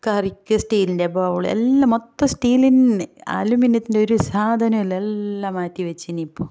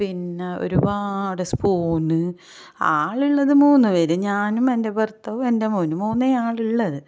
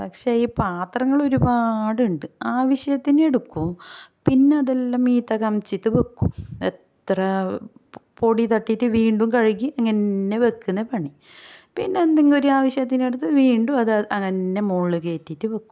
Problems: none marked